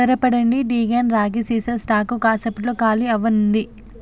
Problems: constant background noise